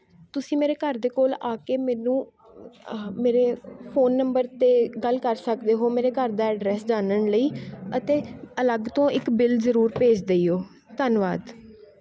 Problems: none marked